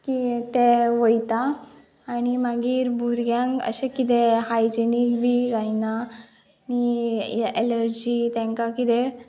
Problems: none marked